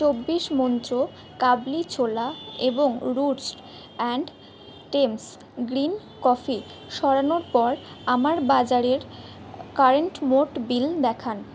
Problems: background sounds at intervals